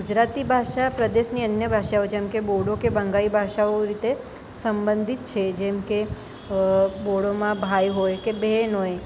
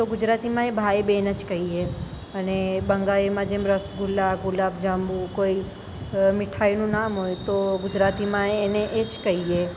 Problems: none marked